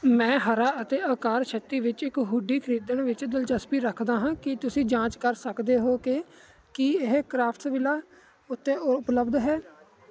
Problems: none marked